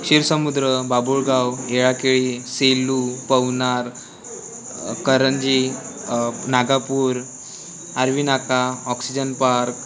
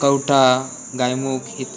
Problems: constant background noise